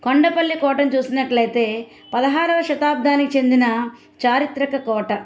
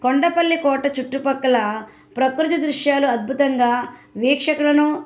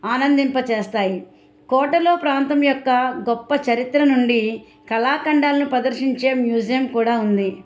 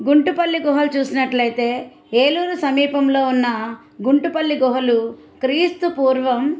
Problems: background sounds at intervals